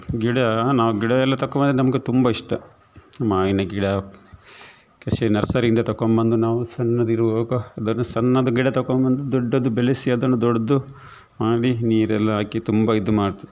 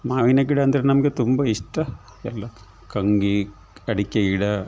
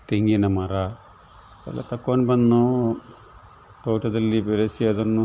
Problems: none marked